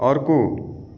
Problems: echo